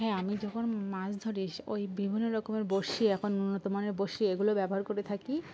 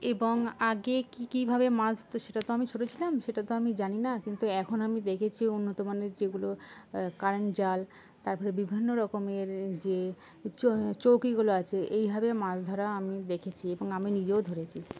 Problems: constant background noise